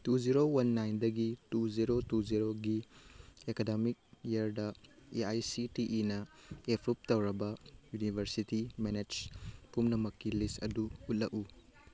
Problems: background sounds at intervals, background conversations at intervals